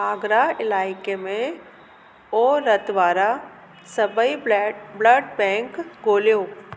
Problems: constant background noise